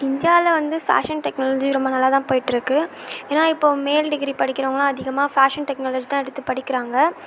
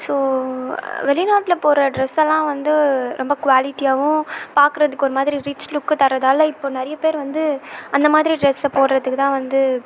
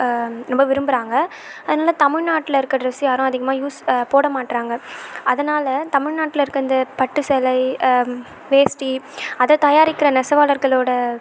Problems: none marked